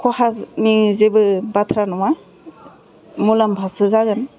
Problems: constant background noise, continuous background conversations, low volume